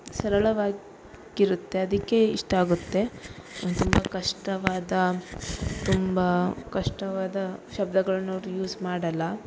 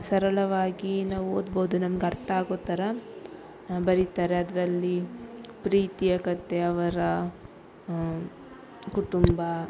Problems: none marked